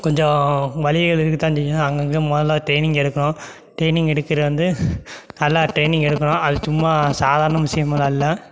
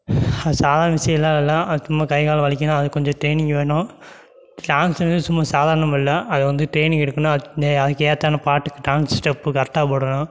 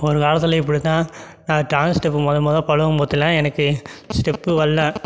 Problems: background sounds at intervals